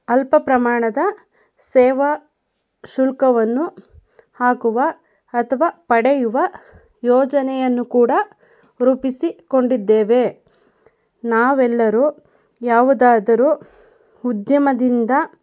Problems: none marked